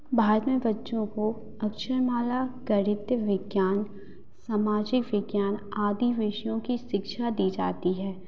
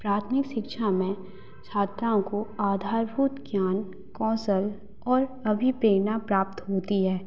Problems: constant background noise